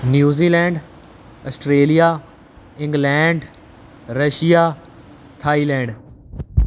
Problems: none marked